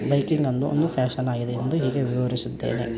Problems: constant background noise